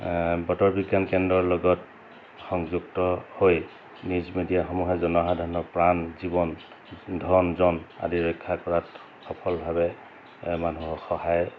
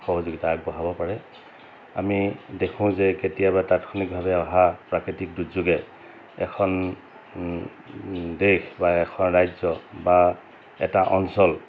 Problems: constant background noise